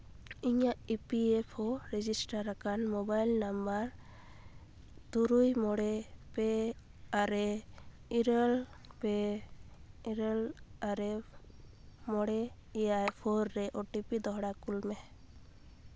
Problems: none marked